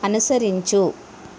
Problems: constant background noise